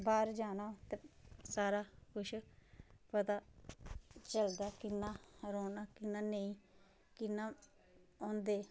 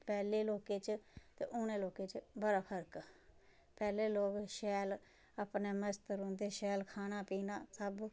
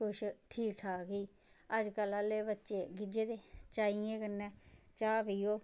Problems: background sounds at intervals